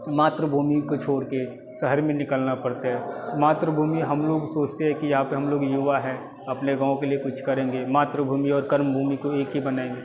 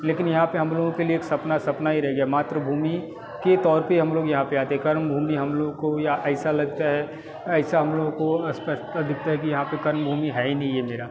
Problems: none marked